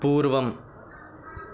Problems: constant background noise